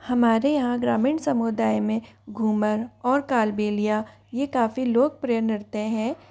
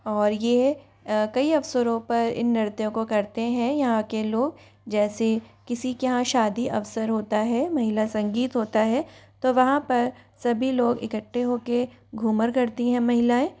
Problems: constant background noise, background conversations at intervals